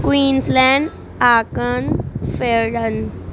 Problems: none marked